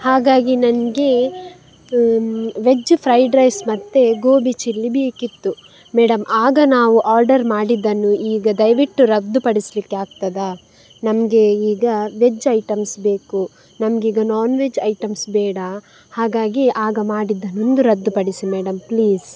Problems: background sounds at intervals